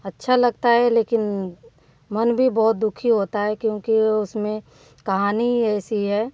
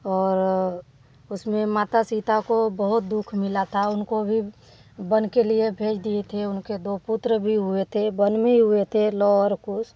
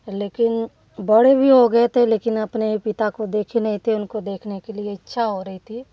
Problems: none marked